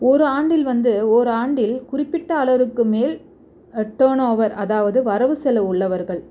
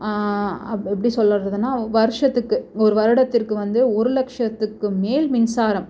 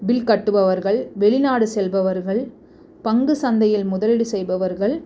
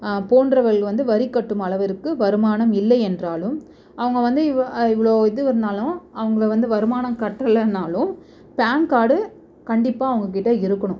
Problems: none marked